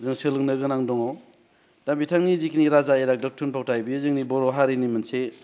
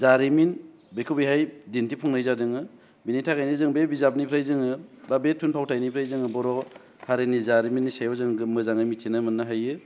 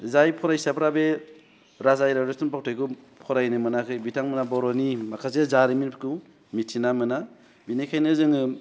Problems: none marked